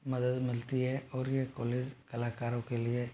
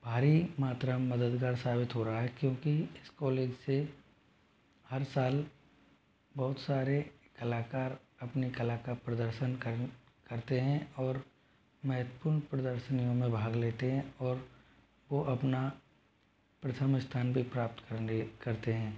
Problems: low volume